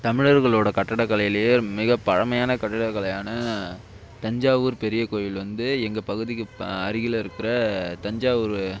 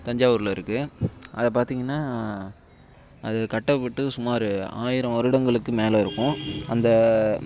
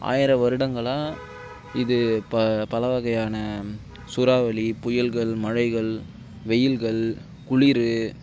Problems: background sounds at intervals